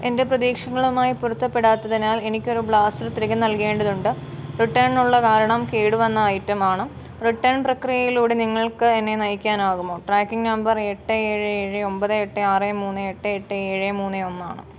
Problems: background sounds at intervals